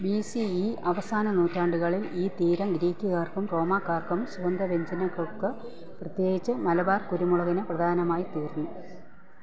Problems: low volume